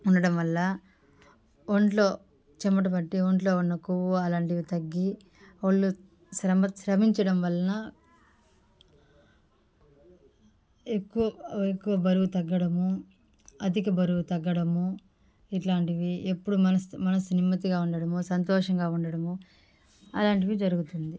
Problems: background sounds at intervals, background conversations at intervals